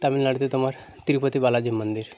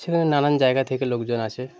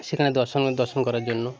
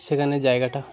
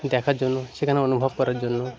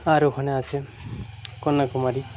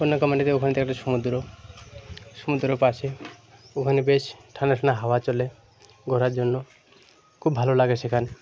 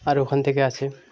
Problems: constant background noise, continuous background conversations